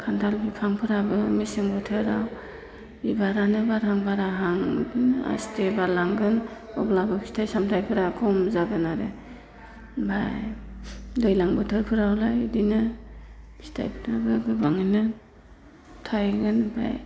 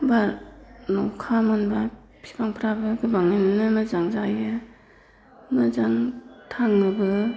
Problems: constant background noise